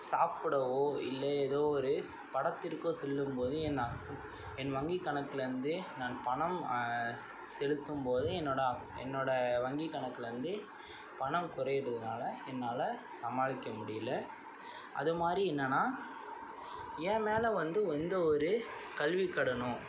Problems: constant background noise, low volume